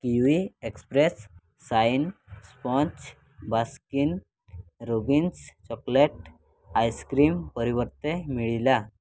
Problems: none marked